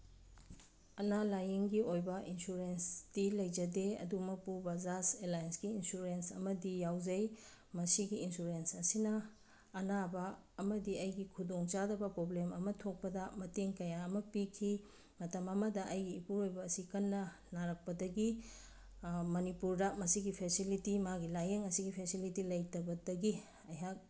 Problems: background sounds at intervals